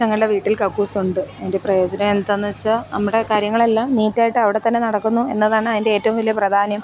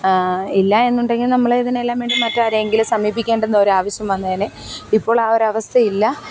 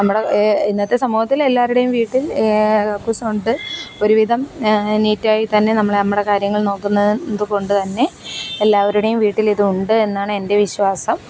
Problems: background sounds at intervals